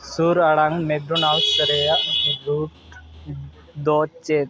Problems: constant background noise